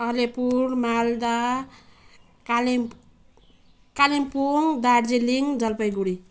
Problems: background sounds at intervals